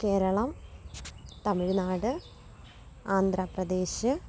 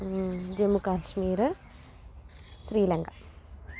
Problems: low volume